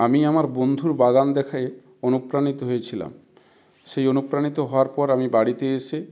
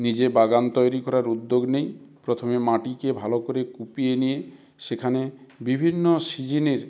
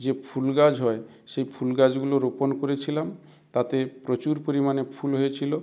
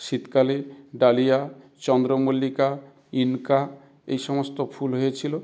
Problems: background sounds at intervals